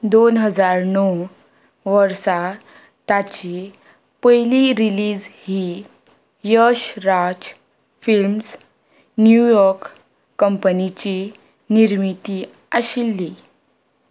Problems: none marked